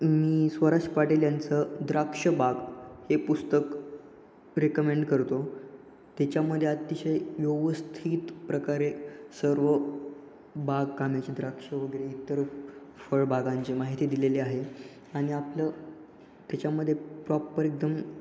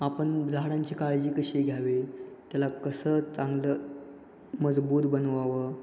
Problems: constant background noise, echo